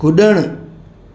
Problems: constant background noise